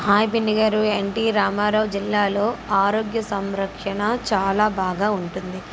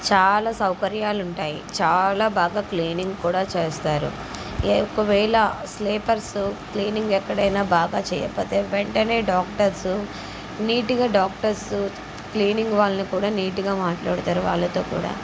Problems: constant background noise